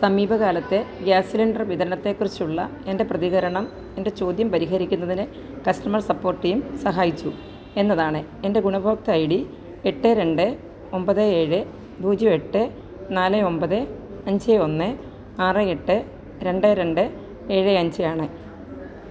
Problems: constant background noise